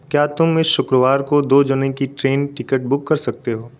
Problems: constant background noise